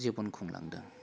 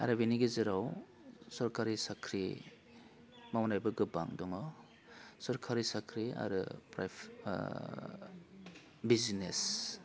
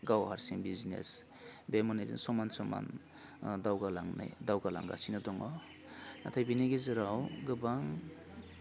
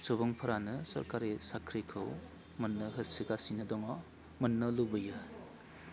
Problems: constant background noise